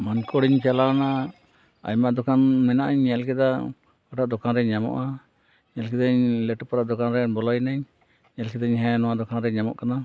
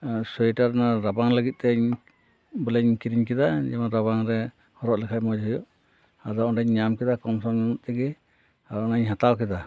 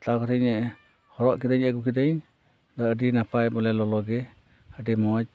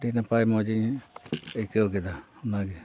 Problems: none marked